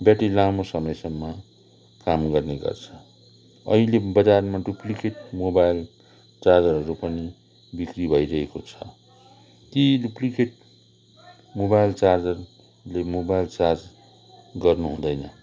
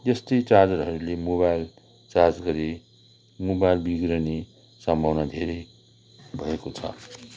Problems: background sounds at intervals, continuous background conversations